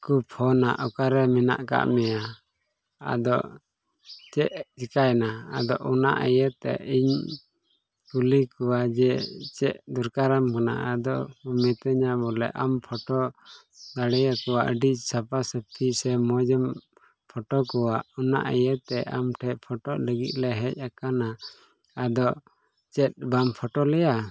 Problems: background sounds at intervals